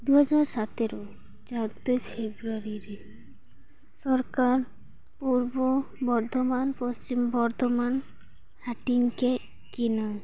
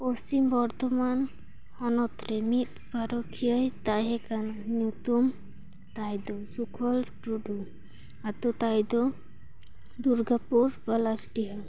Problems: background sounds at intervals